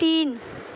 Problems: constant background noise